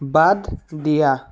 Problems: none marked